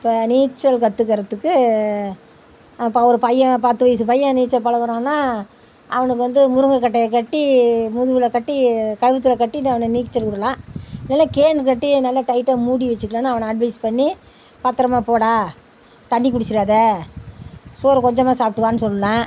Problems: none marked